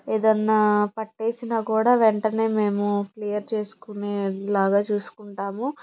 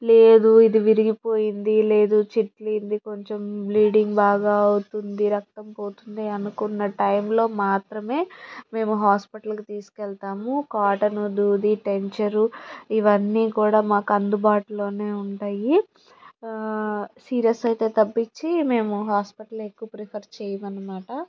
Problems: background sounds at intervals